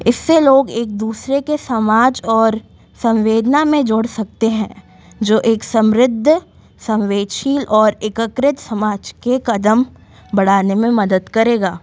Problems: constant background noise